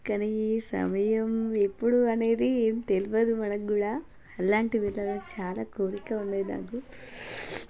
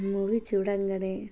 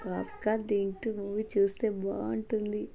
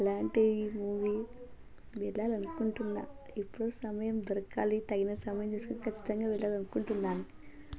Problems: continuous background conversations